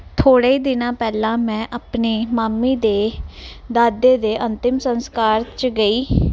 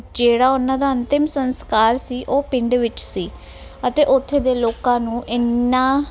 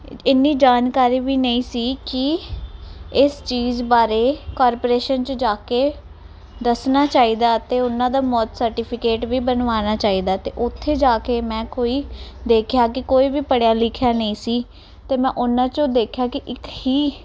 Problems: background sounds at intervals